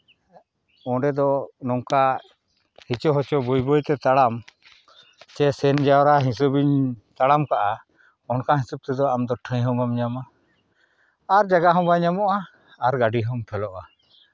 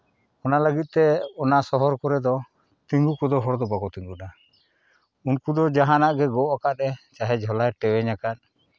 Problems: none marked